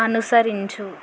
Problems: constant background noise